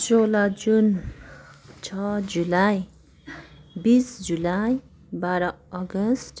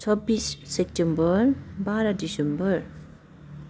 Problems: constant background noise